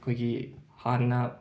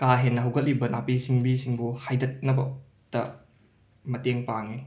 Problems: background sounds at intervals